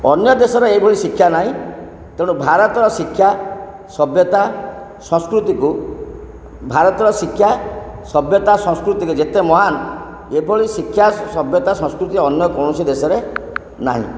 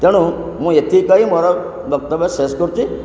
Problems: background sounds at intervals